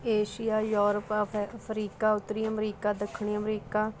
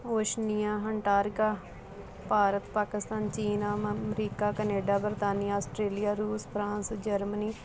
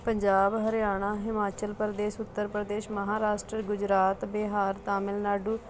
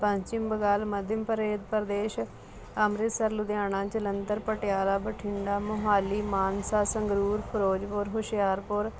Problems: constant background noise